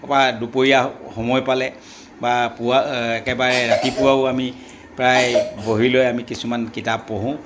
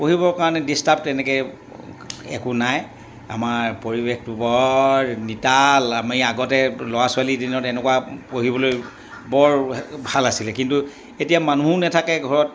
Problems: background sounds at intervals